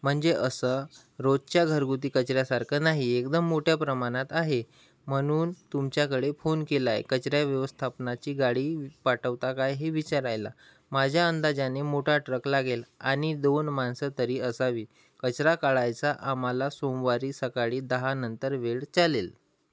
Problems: background sounds at intervals